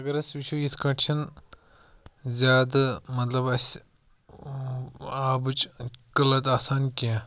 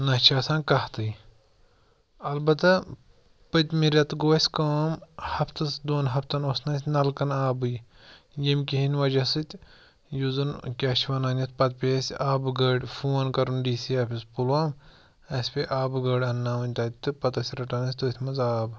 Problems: none marked